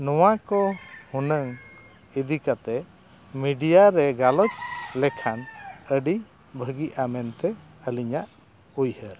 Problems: constant background noise